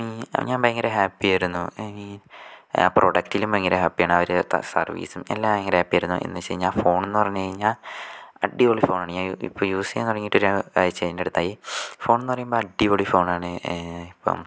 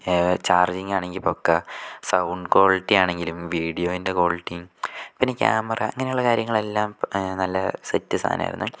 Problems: none marked